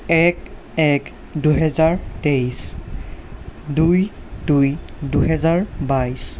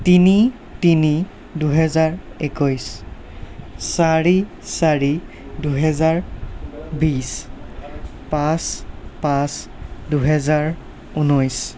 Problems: none marked